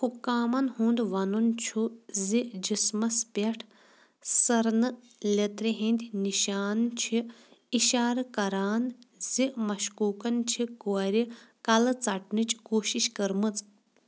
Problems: constant background noise